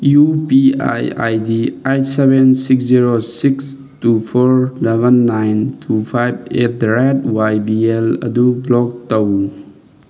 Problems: none marked